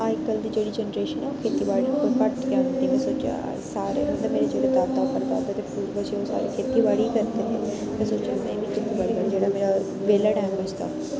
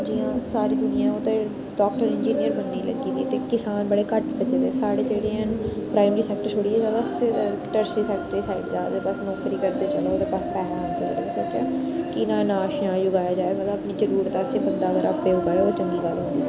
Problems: constant background noise